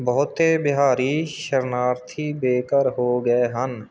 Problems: background sounds at intervals